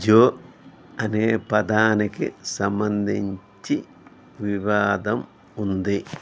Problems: none marked